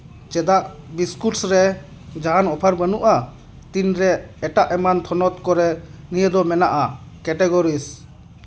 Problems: none marked